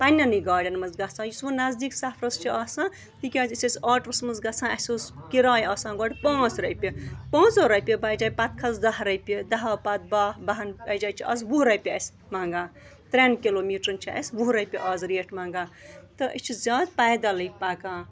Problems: background sounds at intervals